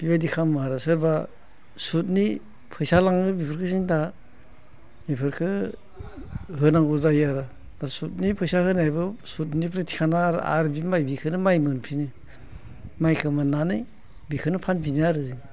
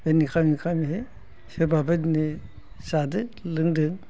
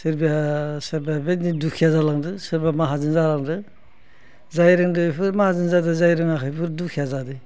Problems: low volume